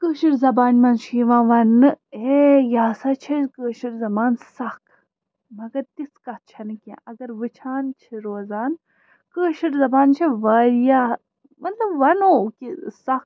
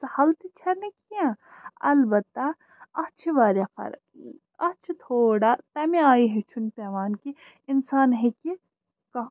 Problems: constant background noise